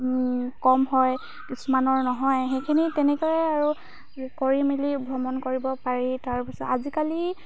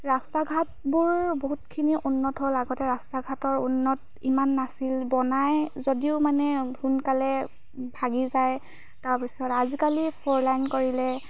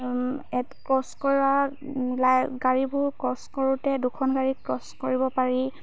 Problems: constant background noise